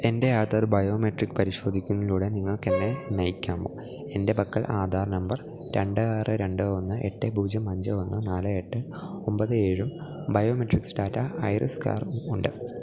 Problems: none marked